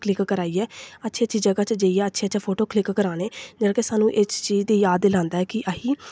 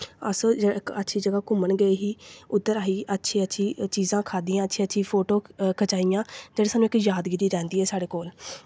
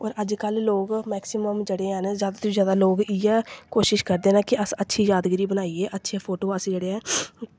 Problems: none marked